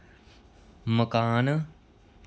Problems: none marked